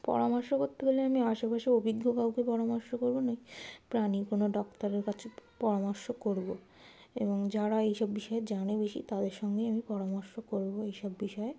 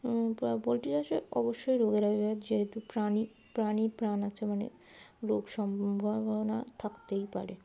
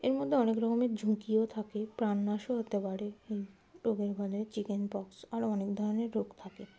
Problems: constant background noise